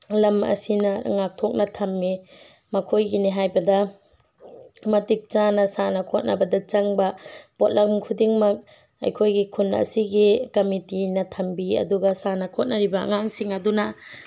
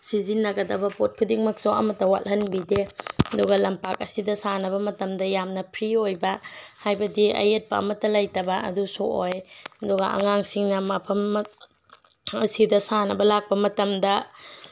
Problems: none marked